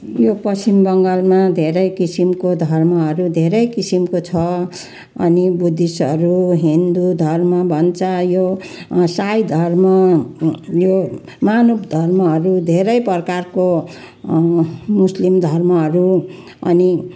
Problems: none marked